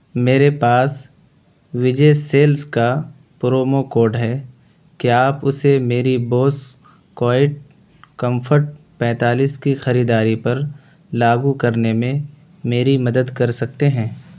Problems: constant background noise